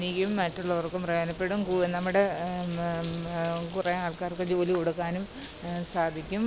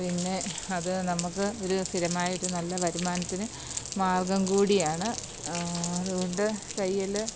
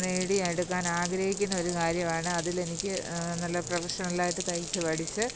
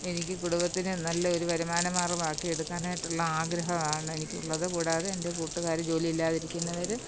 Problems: constant background noise